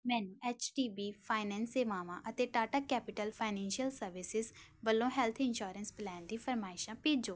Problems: none marked